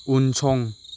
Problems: constant background noise